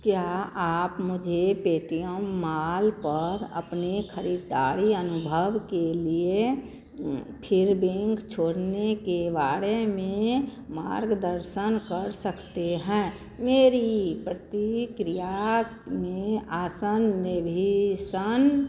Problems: none marked